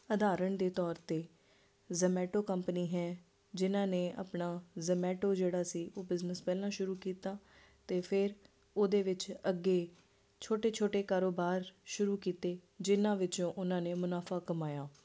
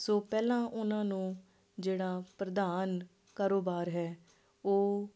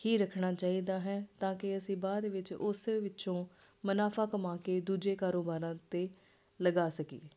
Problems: constant background noise